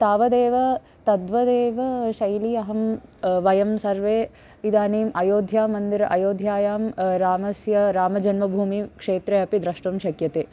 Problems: none marked